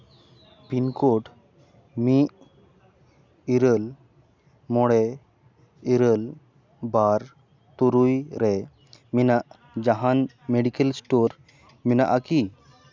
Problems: constant background noise